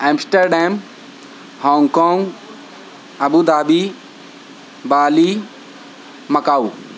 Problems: constant background noise